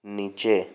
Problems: none marked